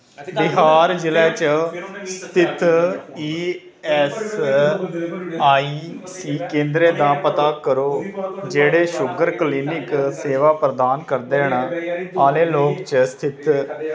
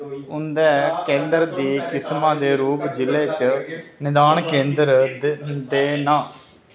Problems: constant background noise